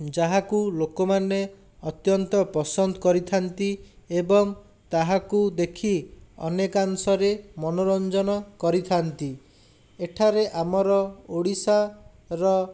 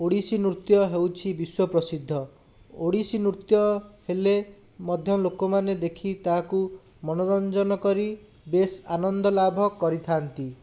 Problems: none marked